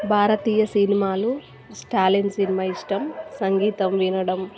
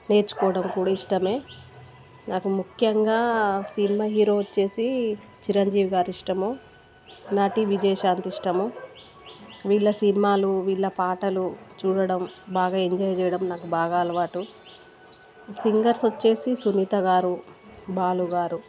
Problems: background sounds at intervals